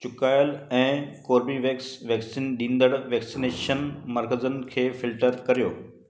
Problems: constant background noise, echo